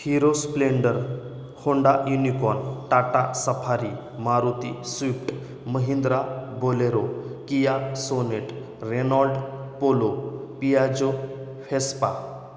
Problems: none marked